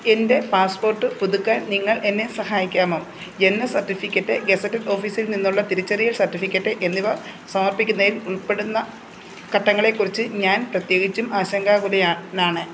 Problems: background sounds at intervals